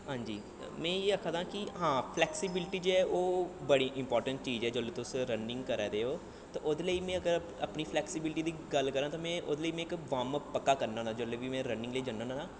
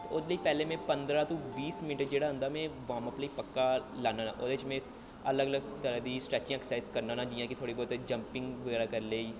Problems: low volume